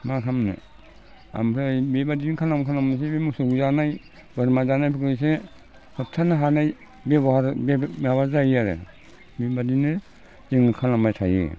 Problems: low volume